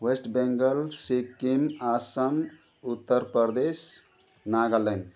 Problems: continuous background conversations